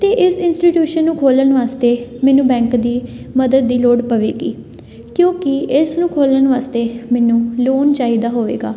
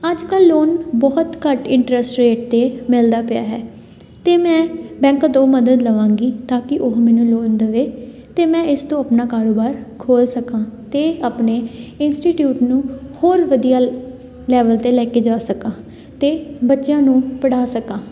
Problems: constant background noise, background conversations at intervals